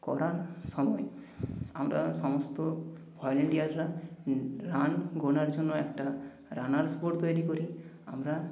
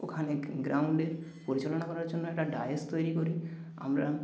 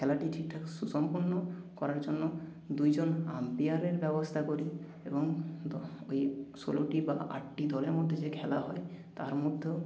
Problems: background sounds at intervals